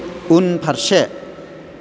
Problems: none marked